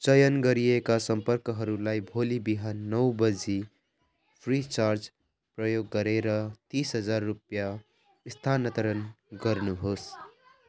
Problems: background sounds at intervals